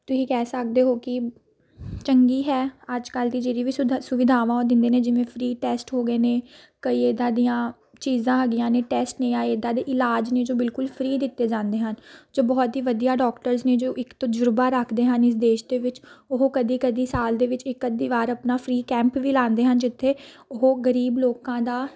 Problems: continuous background conversations